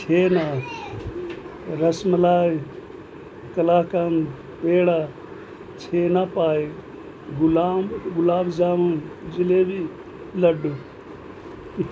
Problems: constant background noise